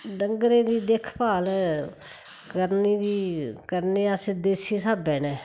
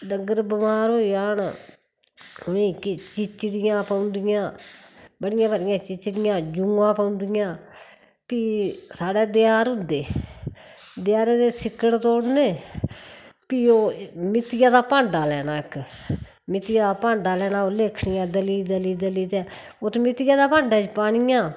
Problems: none marked